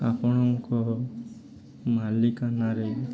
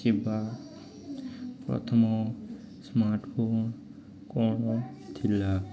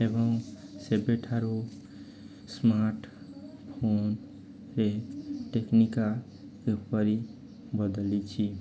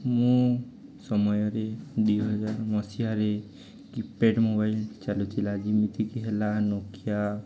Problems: continuous background conversations